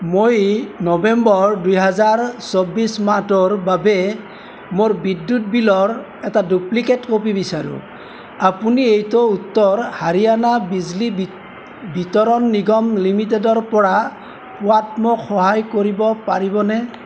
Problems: none marked